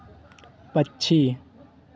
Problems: none marked